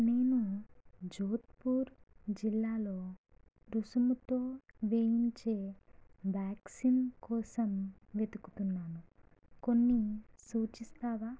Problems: low volume